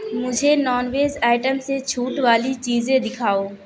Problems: constant background noise